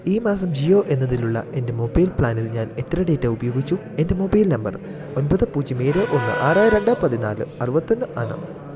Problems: constant background noise